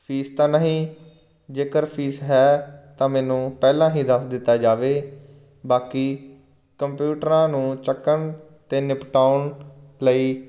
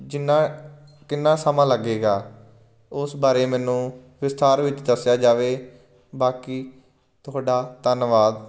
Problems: none marked